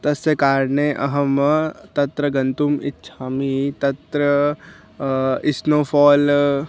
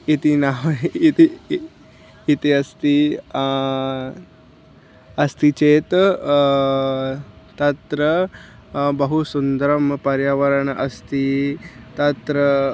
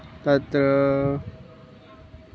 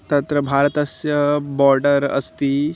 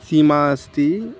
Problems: constant background noise